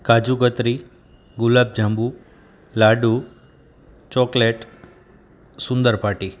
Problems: background sounds at intervals